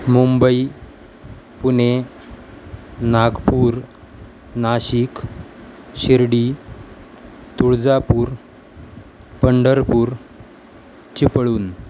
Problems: constant background noise